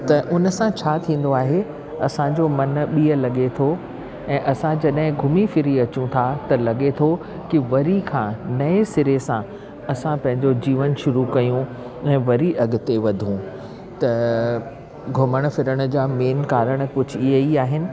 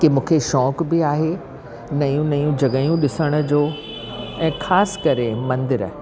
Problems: constant background noise